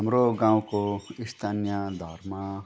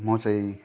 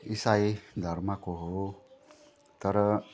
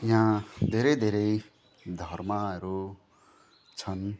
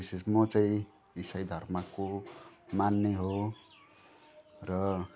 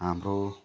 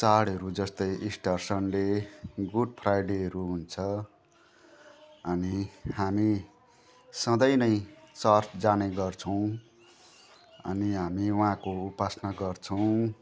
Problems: none marked